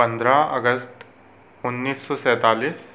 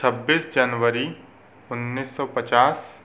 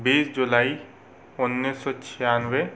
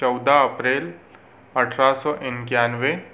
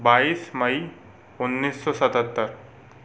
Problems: constant background noise